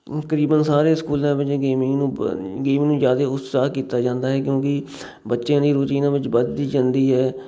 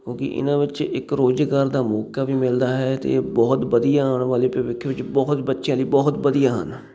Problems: none marked